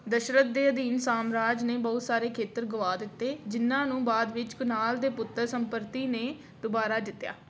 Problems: constant background noise